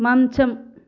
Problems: none marked